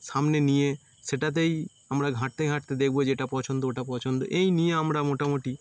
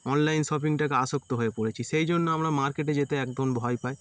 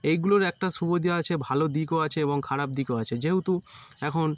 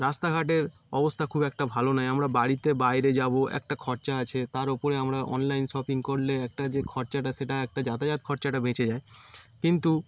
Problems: constant background noise